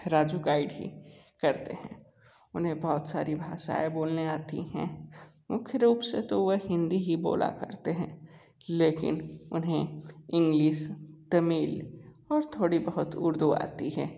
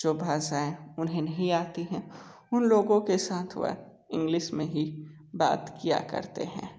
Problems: background sounds at intervals